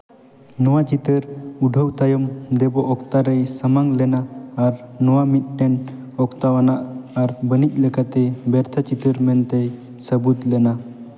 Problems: none marked